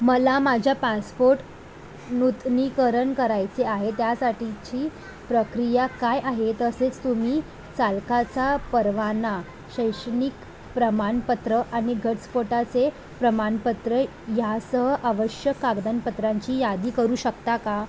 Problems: constant background noise